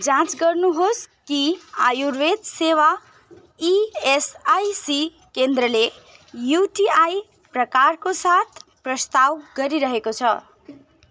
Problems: none marked